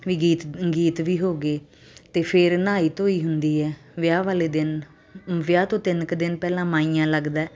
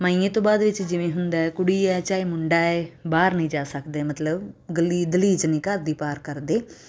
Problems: constant background noise